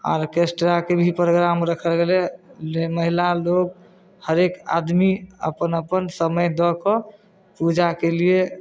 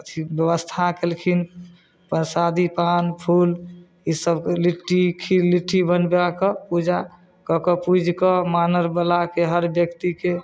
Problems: none marked